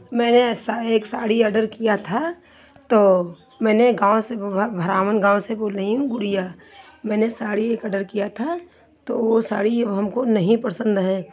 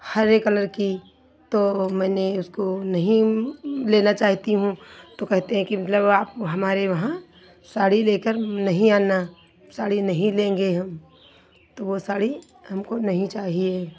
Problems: none marked